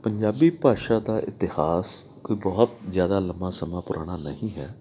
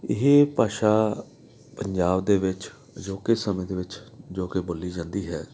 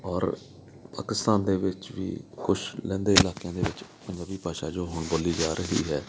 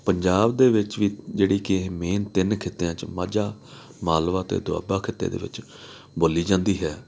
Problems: background sounds at intervals